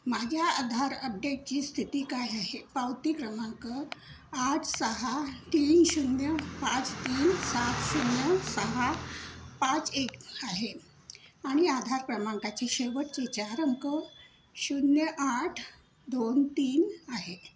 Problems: none marked